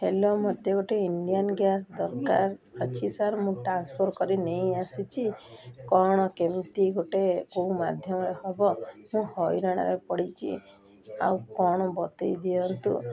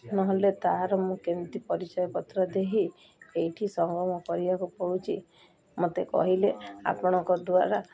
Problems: none marked